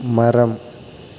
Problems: constant background noise